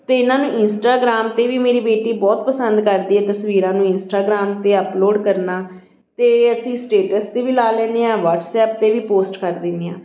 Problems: none marked